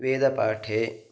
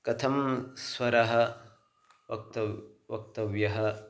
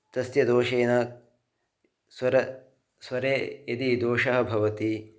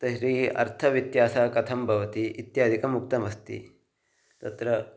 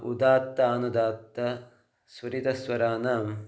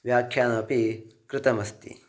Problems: none marked